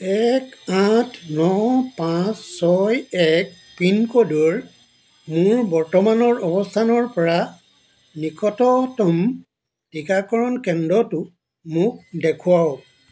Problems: none marked